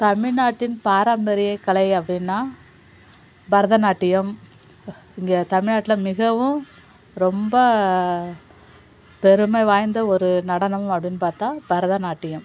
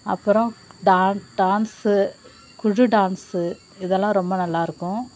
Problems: constant background noise